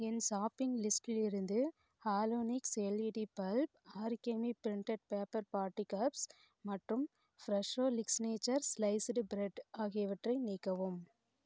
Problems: low volume